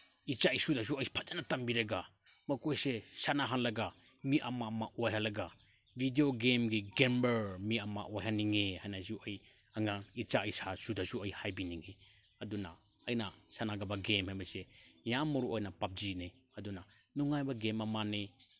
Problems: none marked